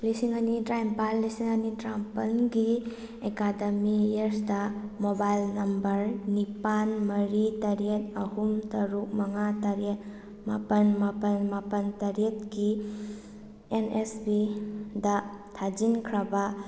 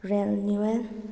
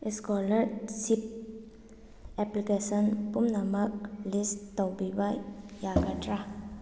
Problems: none marked